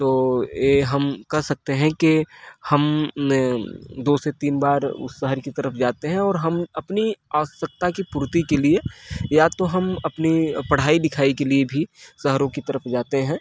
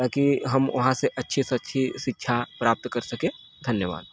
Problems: constant background noise